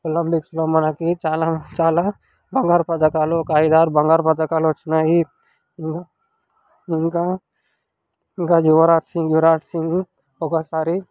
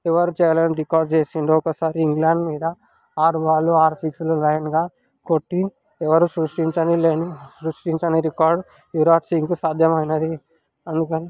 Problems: background conversations at intervals